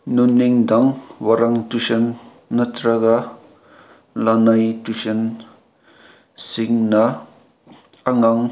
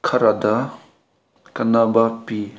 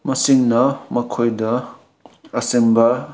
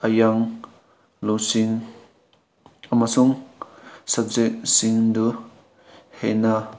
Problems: constant background noise